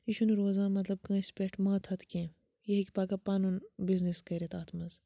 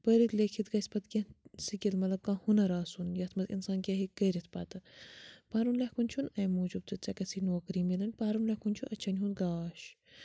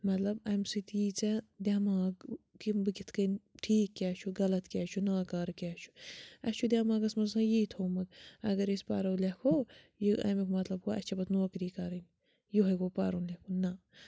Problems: none marked